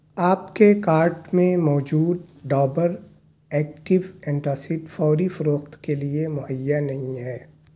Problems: none marked